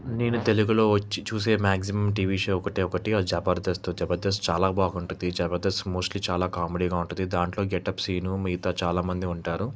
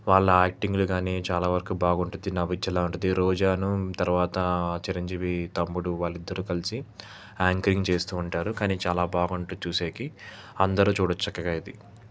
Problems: constant background noise